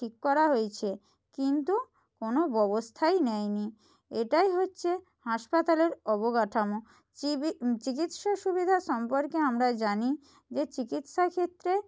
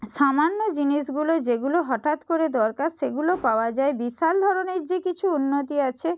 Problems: none marked